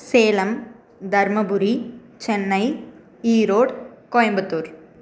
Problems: constant background noise